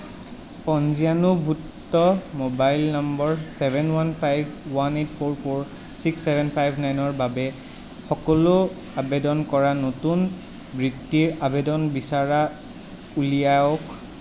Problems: constant background noise